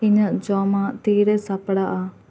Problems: constant background noise